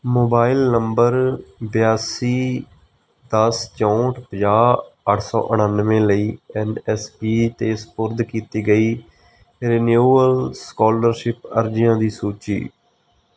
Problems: background sounds at intervals